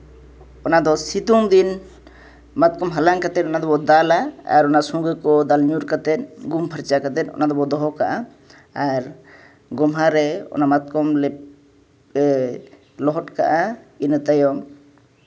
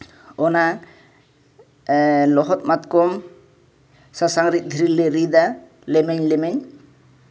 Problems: background sounds at intervals